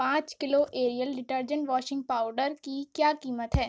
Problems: none marked